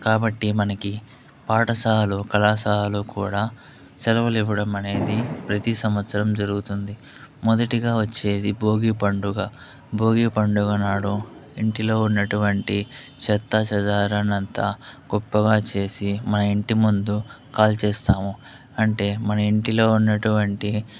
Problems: none marked